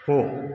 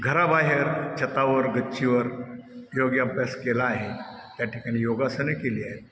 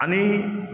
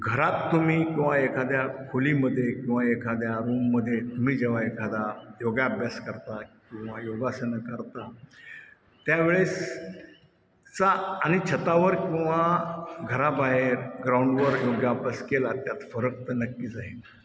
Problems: constant background noise, background conversations at intervals, echo